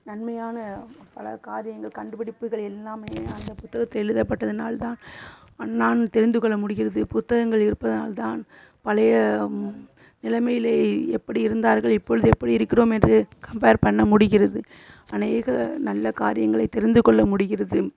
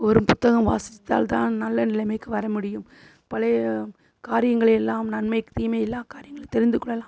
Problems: constant background noise